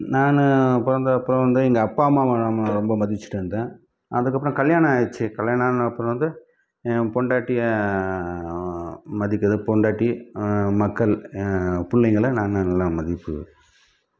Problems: background sounds at intervals